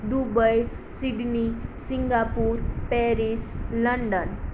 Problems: none marked